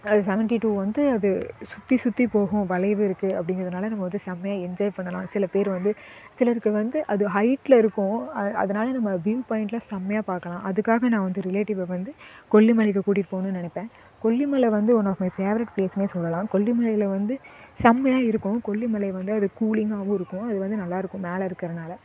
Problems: none marked